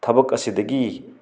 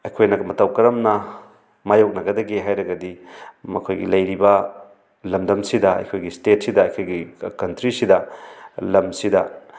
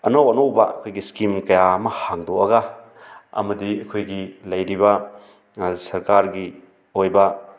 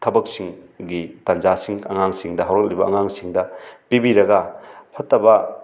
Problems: background sounds at intervals